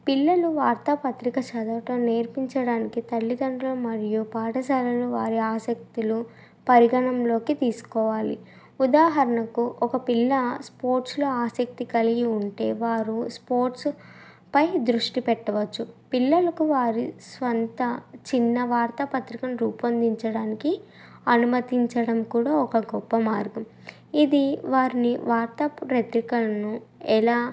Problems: none marked